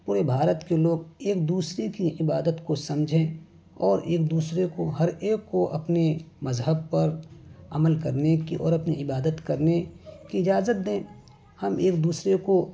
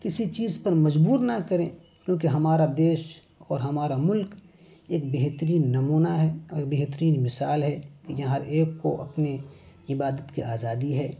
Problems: background sounds at intervals